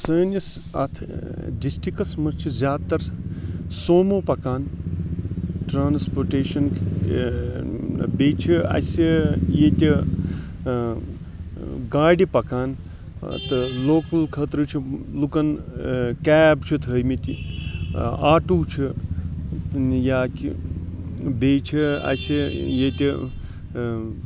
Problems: constant background noise